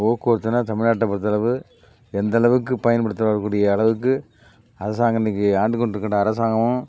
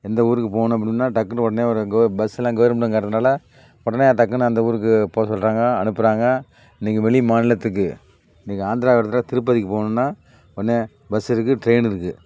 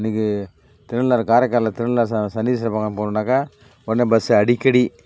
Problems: background sounds at intervals